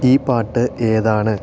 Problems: constant background noise